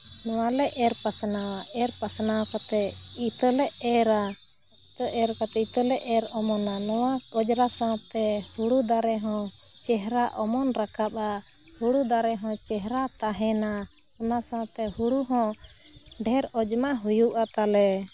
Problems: none marked